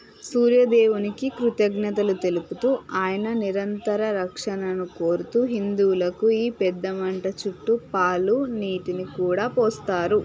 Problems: none marked